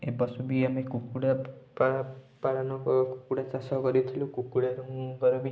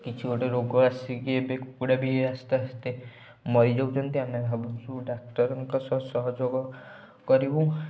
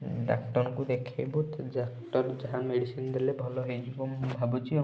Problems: background sounds at intervals